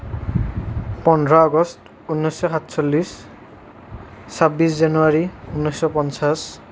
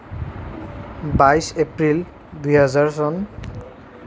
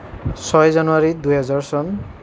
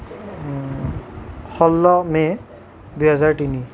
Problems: constant background noise